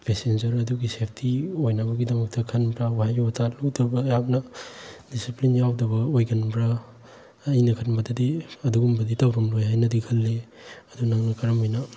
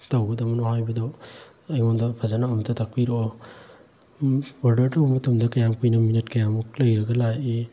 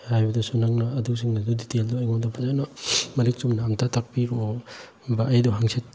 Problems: none marked